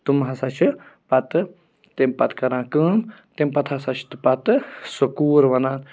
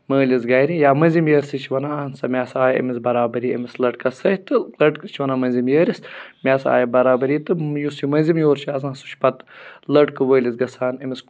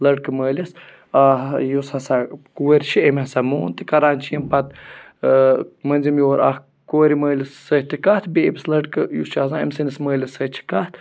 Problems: none marked